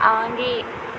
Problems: constant background noise